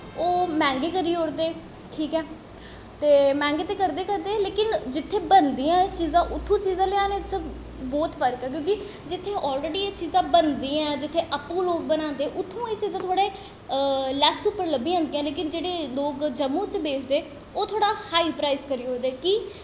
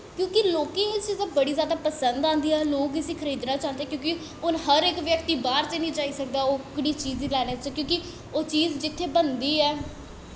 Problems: echo